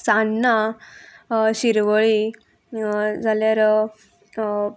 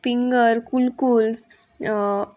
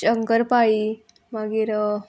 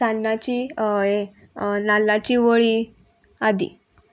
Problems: constant background noise